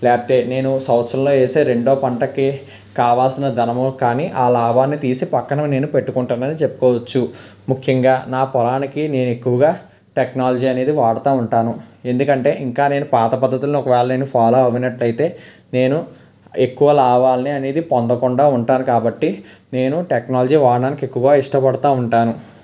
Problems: background sounds at intervals